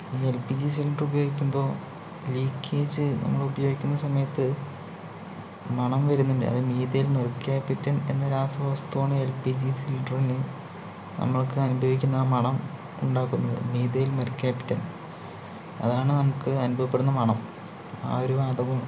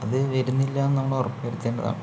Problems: low volume